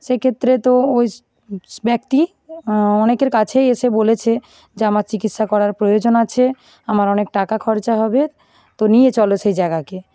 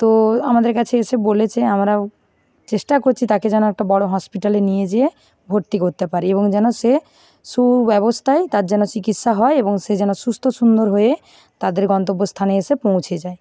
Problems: background sounds at intervals, continuous background conversations